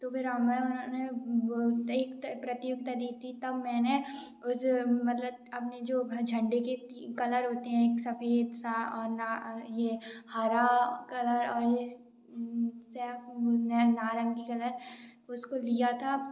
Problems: background sounds at intervals, background conversations at intervals